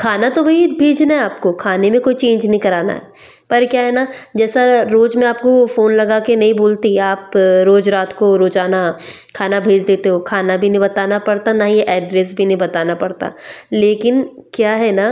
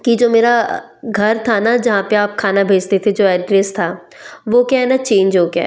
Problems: background sounds at intervals